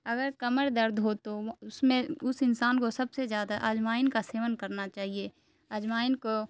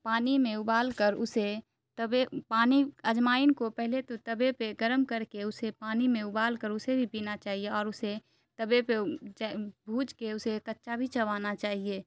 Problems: constant background noise